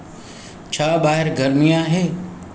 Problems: constant background noise, echo